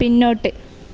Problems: background sounds at intervals